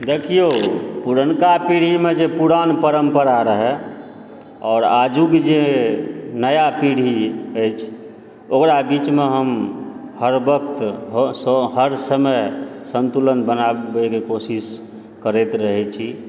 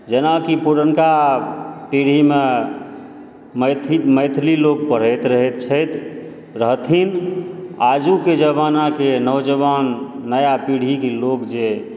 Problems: background sounds at intervals